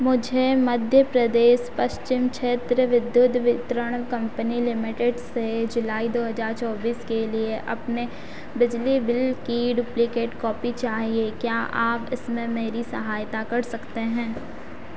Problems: constant background noise